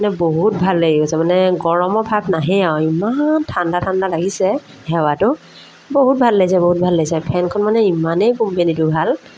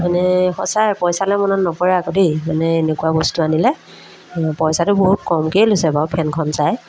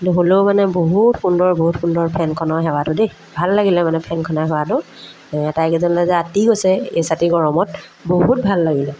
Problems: background sounds at intervals